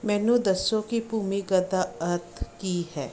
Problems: background sounds at intervals